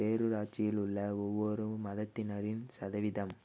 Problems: low volume